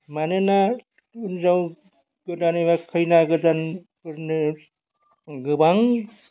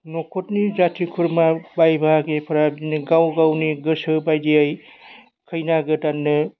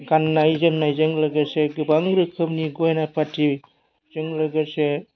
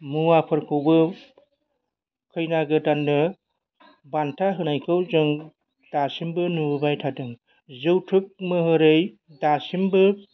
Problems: none marked